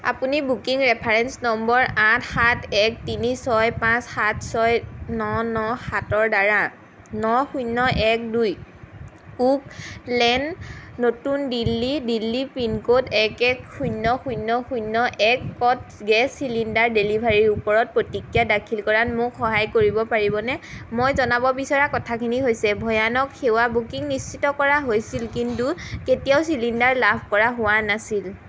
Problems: constant background noise